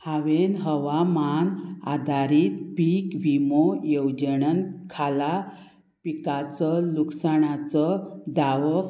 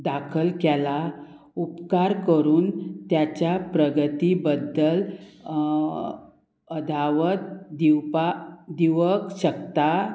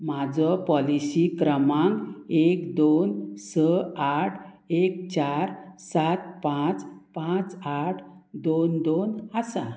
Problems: constant background noise